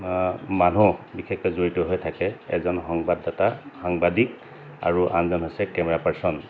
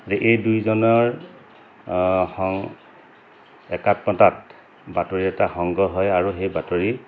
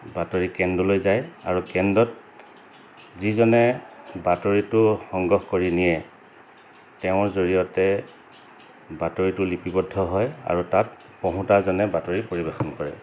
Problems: constant background noise